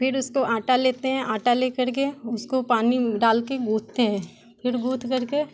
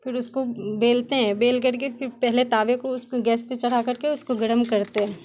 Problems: constant background noise